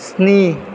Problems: none marked